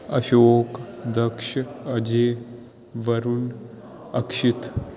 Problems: background sounds at intervals